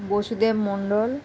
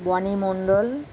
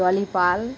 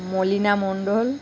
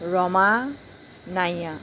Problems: constant background noise